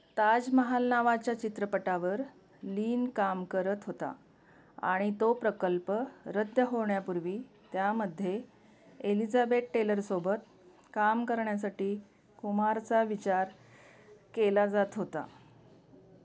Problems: background sounds at intervals